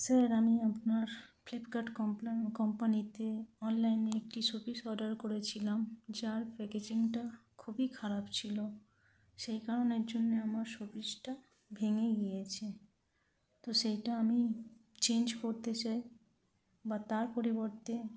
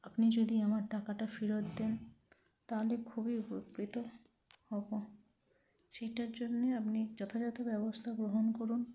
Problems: low volume